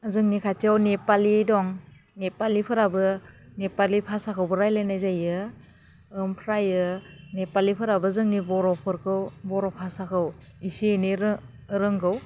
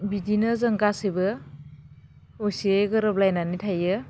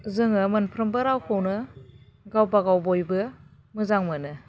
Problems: constant background noise